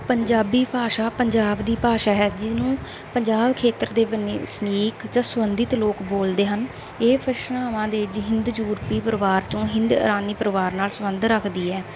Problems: background sounds at intervals